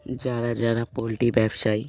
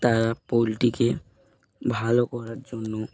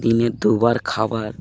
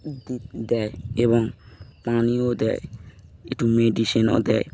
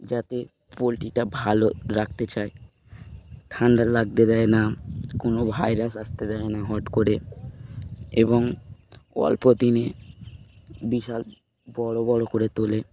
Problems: constant background noise